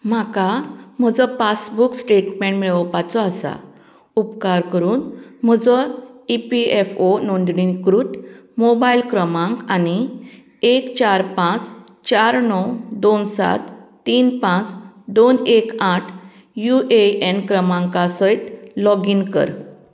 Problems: none marked